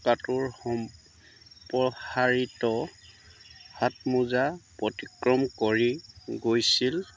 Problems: none marked